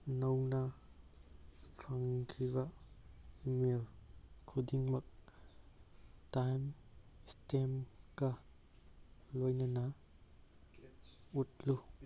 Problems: none marked